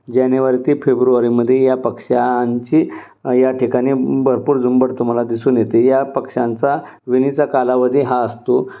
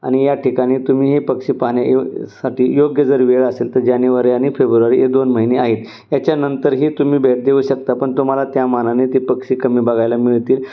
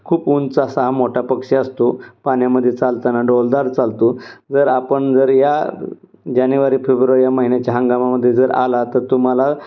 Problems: none marked